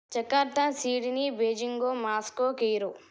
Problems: none marked